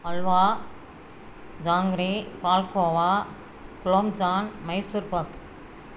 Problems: constant background noise